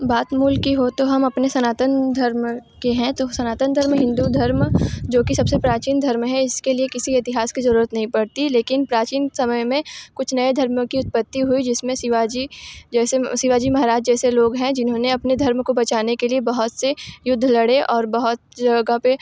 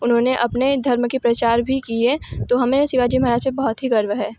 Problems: constant background noise, background conversations at intervals